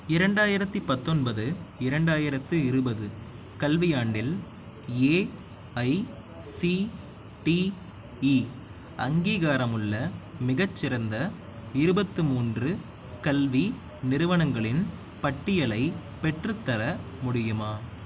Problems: none marked